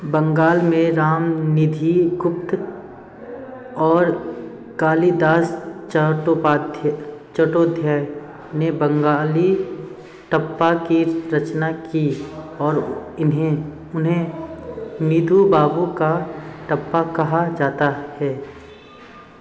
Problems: constant background noise, background conversations at intervals